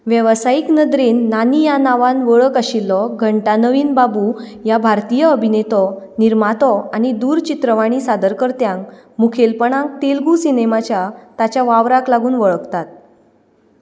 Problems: none marked